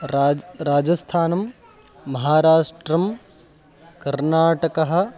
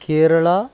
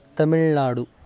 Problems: constant background noise